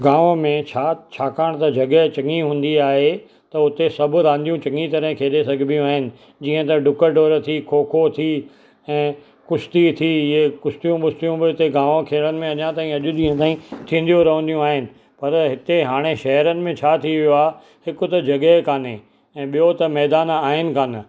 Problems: none marked